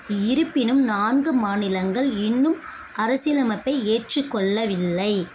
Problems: constant background noise